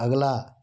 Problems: none marked